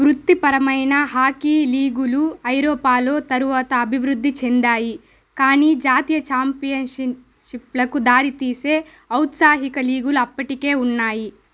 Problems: none marked